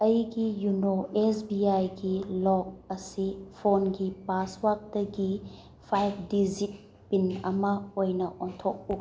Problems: none marked